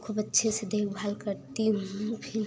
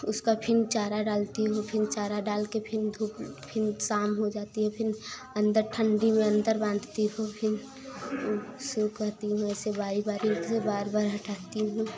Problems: constant background noise